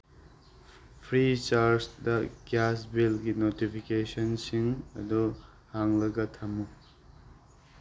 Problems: constant background noise